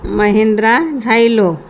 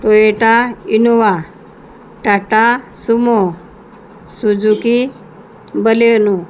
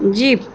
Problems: constant background noise